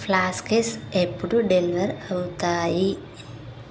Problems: constant background noise